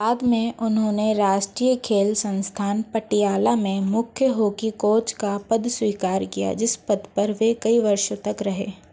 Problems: none marked